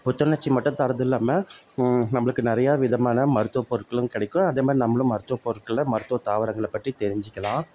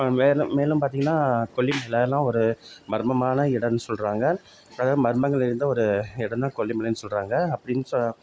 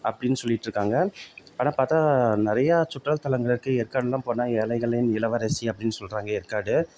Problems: none marked